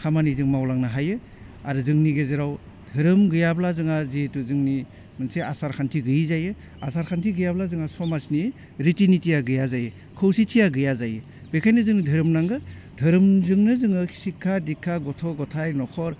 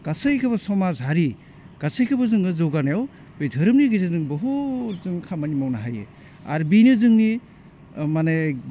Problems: none marked